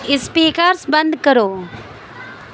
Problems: constant background noise